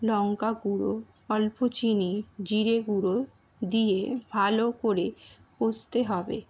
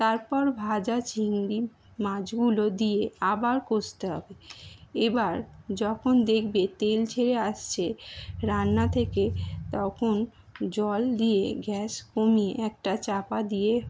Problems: none marked